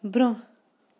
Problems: none marked